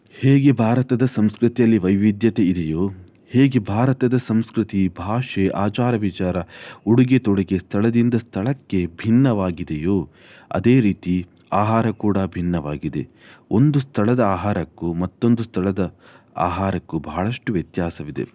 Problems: none marked